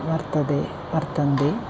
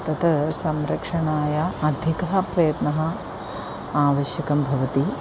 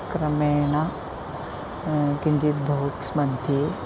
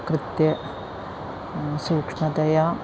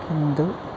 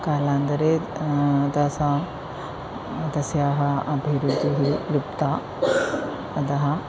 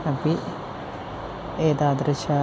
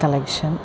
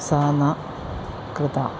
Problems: constant background noise, continuous background conversations